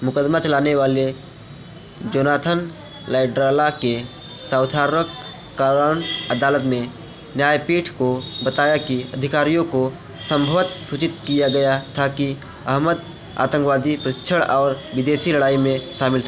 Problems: constant background noise, continuous background conversations